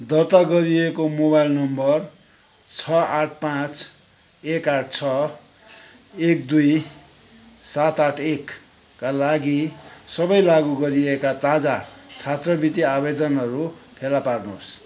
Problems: continuous background conversations